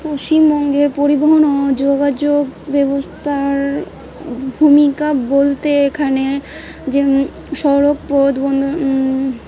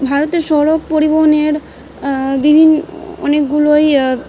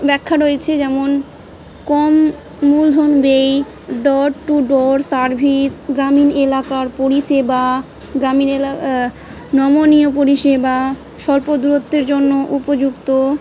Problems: background sounds at intervals, background conversations at intervals